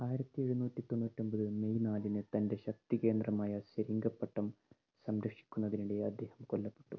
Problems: low volume